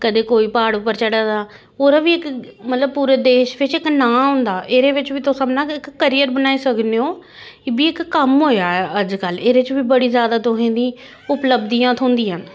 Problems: constant background noise